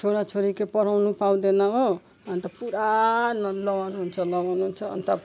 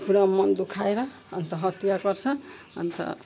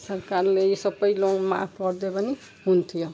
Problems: background sounds at intervals